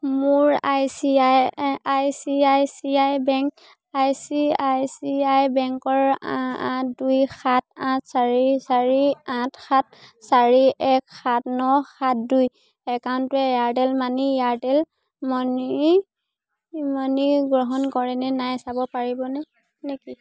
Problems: constant background noise, continuous background conversations